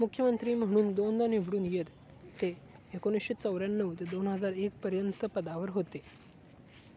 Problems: none marked